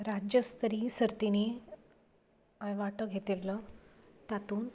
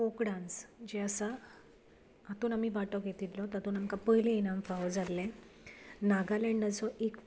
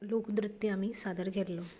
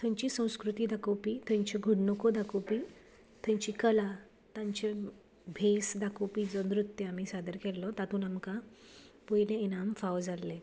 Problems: background sounds at intervals